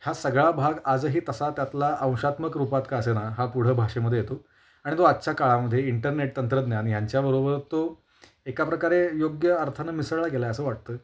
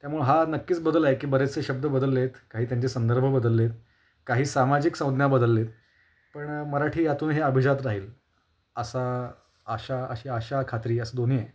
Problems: constant background noise